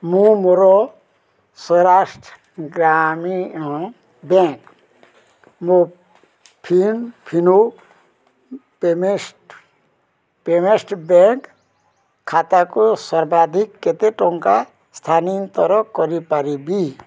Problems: none marked